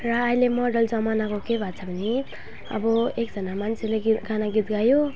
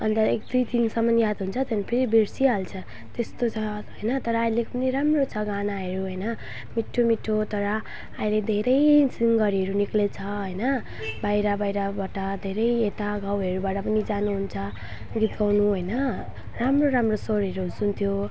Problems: constant background noise, low volume